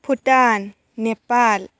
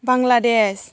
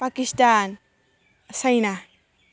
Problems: constant background noise